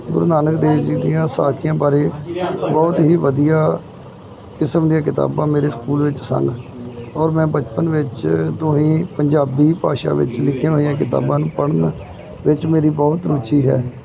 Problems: none marked